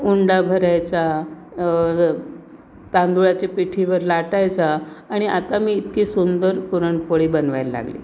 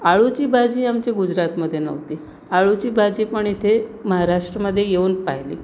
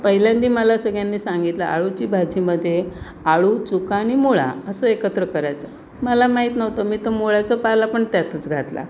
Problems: constant background noise, background conversations at intervals